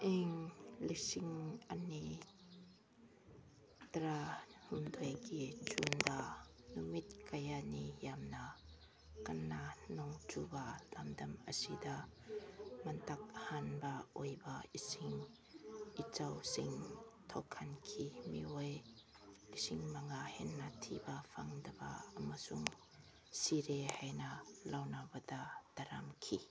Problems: background sounds at intervals